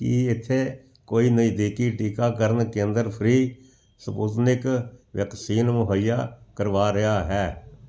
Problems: none marked